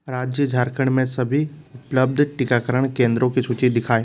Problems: constant background noise